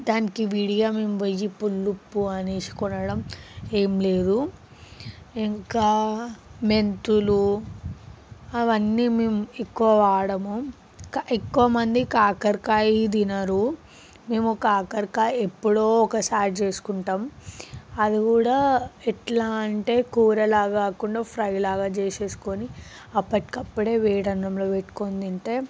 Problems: background sounds at intervals